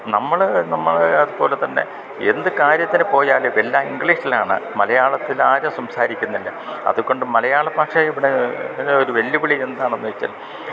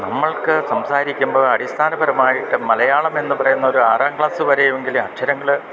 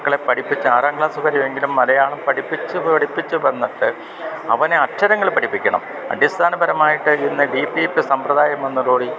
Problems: constant background noise, low volume